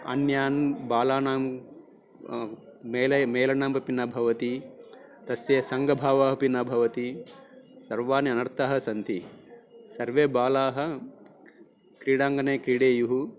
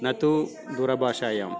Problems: background sounds at intervals, background conversations at intervals